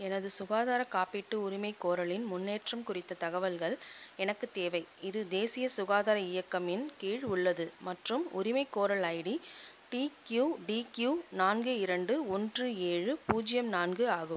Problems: constant background noise